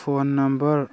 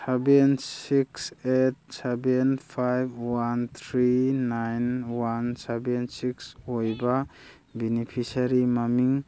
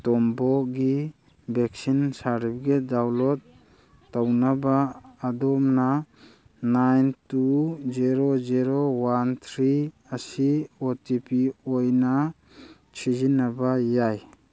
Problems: none marked